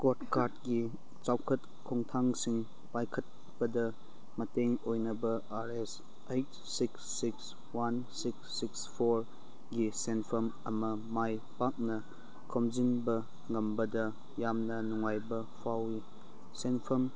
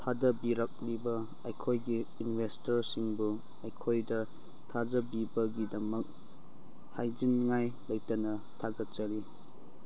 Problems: background sounds at intervals